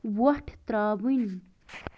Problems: background sounds at intervals